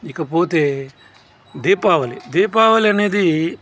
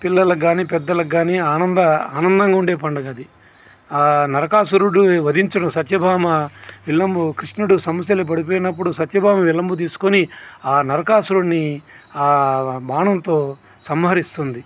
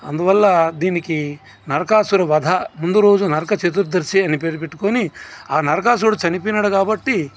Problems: constant background noise